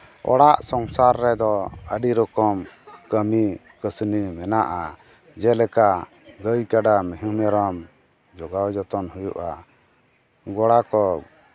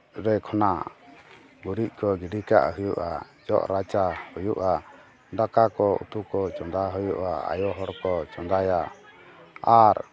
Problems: background conversations at intervals